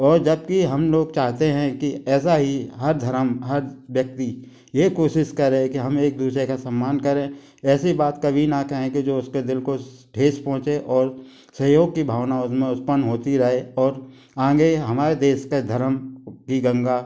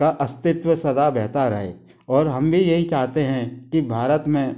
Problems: constant background noise